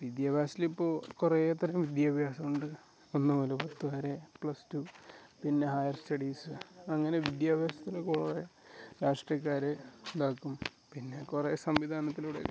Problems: background sounds at intervals